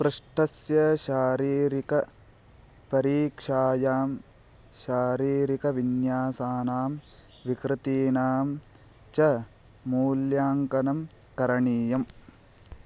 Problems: low volume